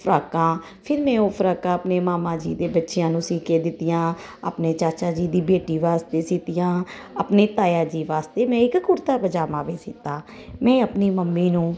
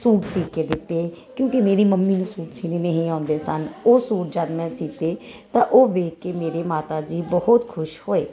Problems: constant background noise